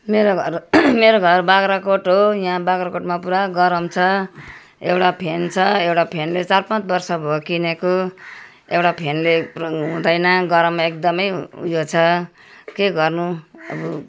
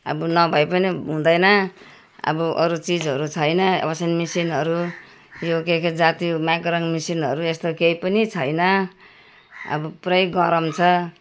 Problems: constant background noise